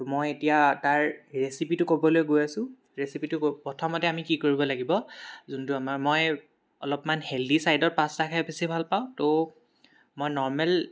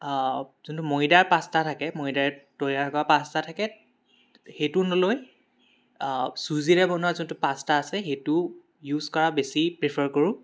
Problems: background sounds at intervals, background conversations at intervals